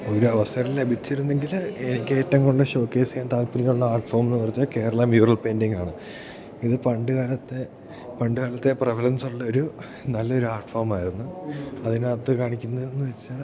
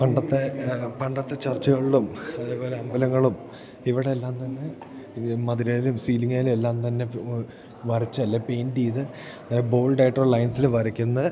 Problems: none marked